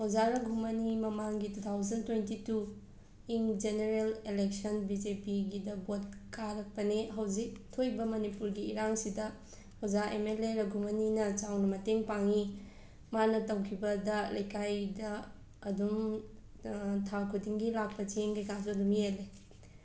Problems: background sounds at intervals, background conversations at intervals